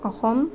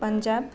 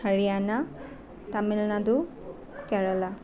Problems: none marked